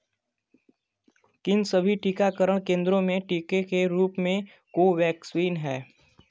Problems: constant background noise